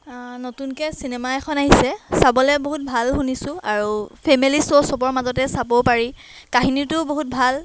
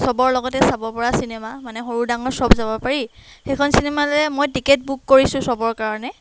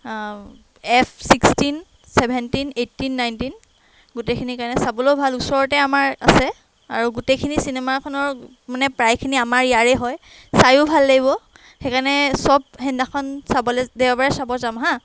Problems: background sounds at intervals